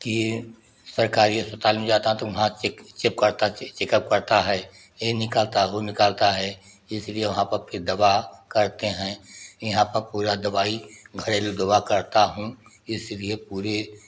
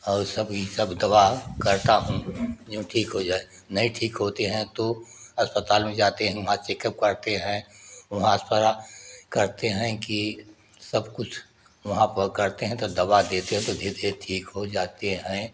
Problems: none marked